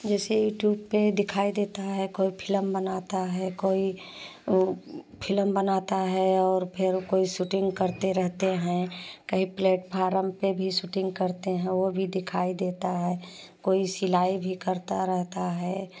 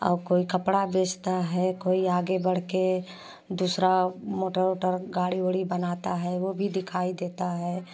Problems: none marked